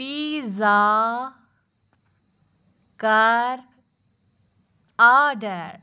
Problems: background sounds at intervals